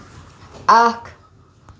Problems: constant background noise